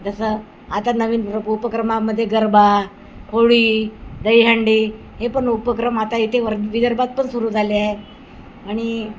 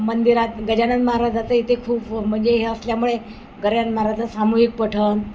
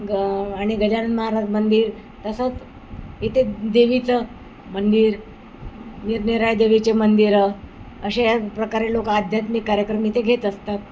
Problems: constant background noise